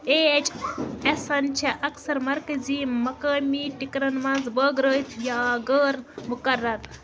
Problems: constant background noise